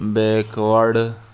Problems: constant background noise